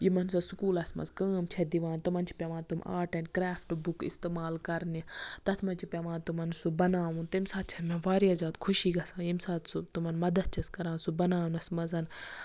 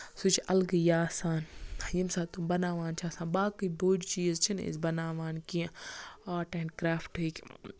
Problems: none marked